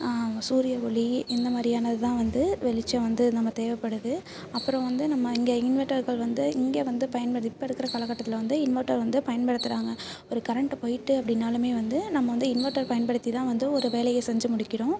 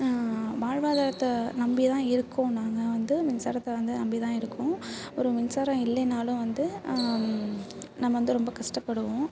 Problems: constant background noise